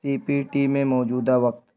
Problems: constant background noise